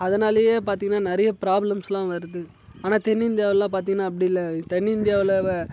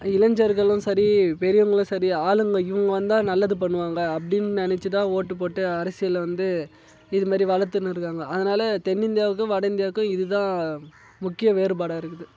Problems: none marked